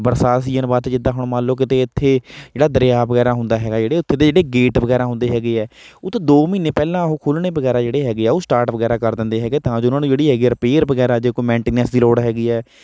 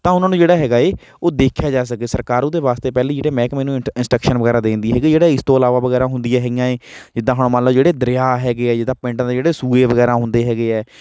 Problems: none marked